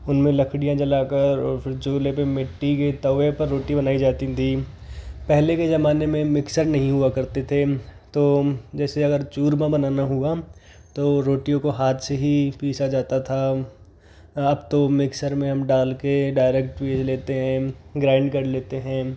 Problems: background sounds at intervals